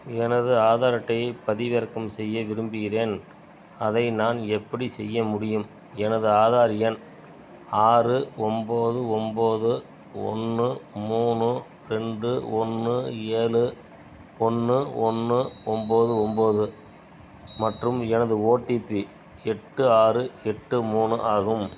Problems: background sounds at intervals